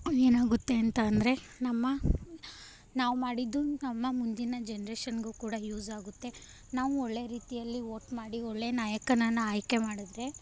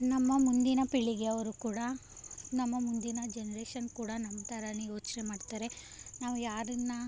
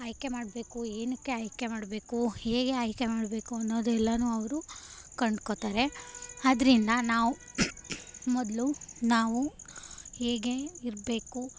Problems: none marked